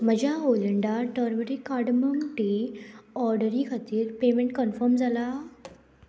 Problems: none marked